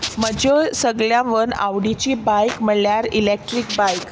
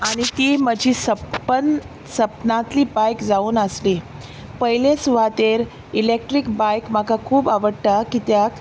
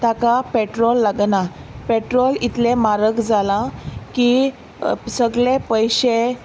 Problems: none marked